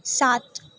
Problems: none marked